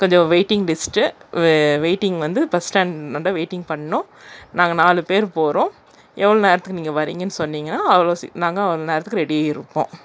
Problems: none marked